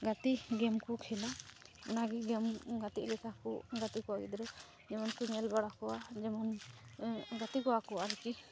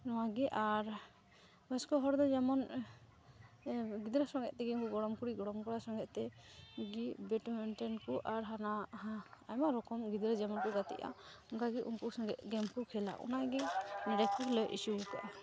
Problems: constant background noise, background conversations at intervals